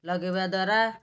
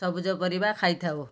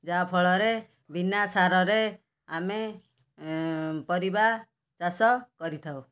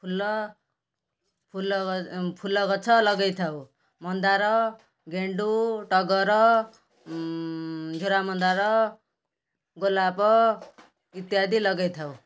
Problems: background sounds at intervals